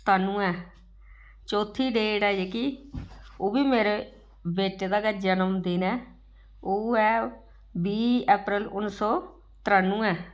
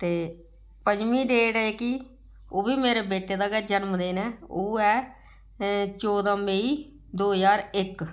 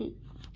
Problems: none marked